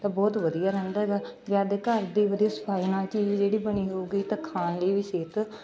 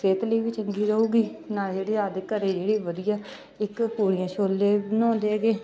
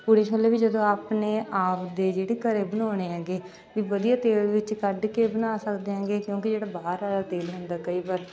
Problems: background sounds at intervals, background conversations at intervals